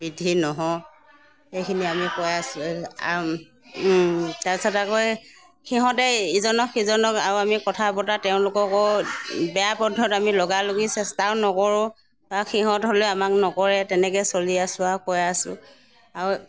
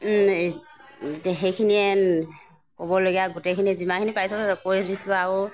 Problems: none marked